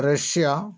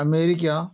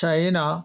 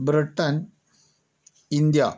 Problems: none marked